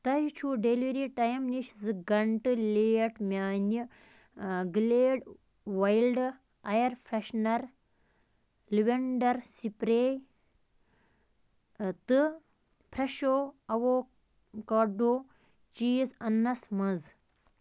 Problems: none marked